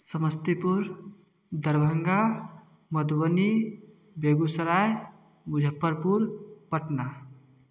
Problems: background sounds at intervals